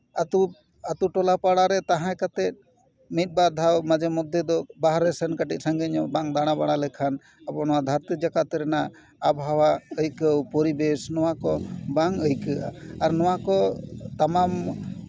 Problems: background sounds at intervals, background conversations at intervals